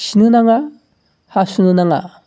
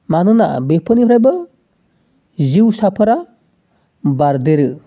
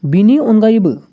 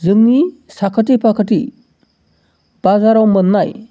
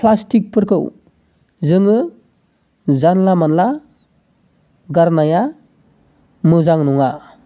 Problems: none marked